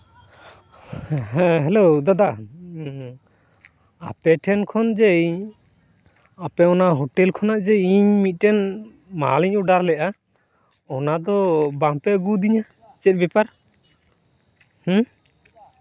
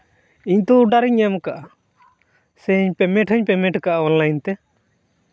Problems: background sounds at intervals